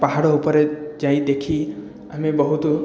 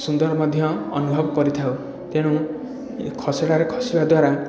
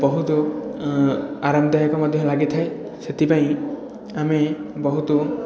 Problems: background sounds at intervals, continuous background conversations